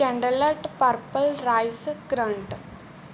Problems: background sounds at intervals